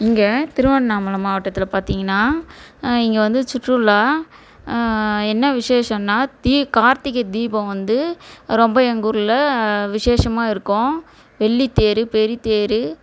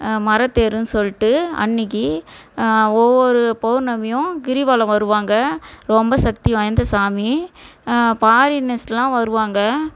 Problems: none marked